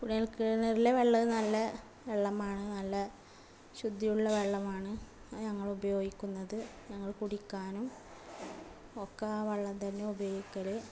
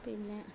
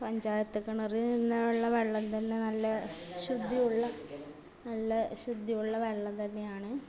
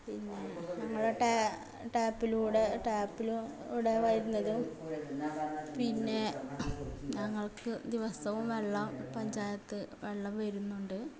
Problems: background sounds at intervals, continuous background conversations, low volume